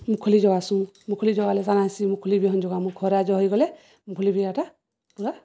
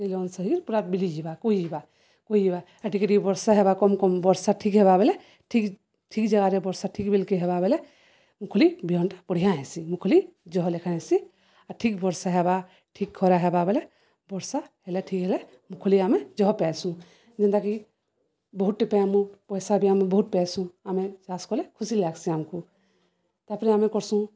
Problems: none marked